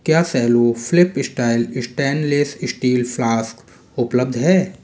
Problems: none marked